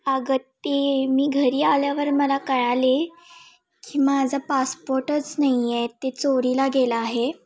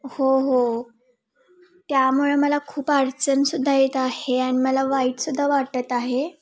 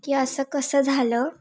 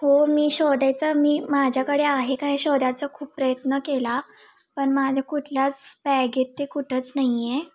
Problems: constant background noise, background conversations at intervals